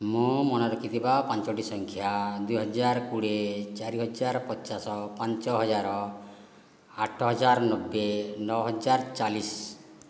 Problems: none marked